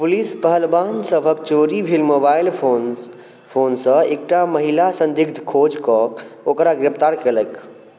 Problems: none marked